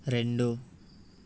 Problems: none marked